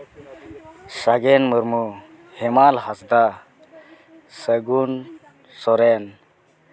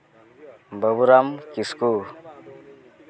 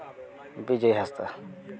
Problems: background sounds at intervals, continuous background conversations